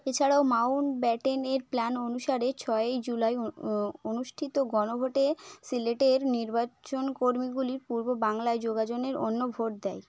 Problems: background conversations at intervals